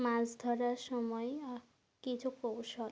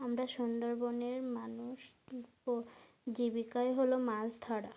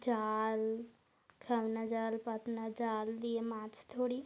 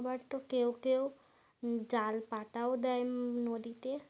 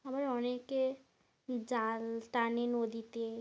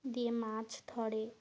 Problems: none marked